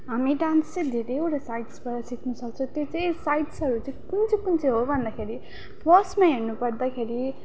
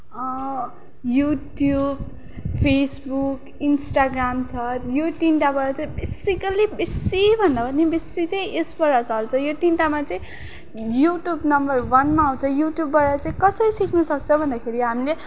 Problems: constant background noise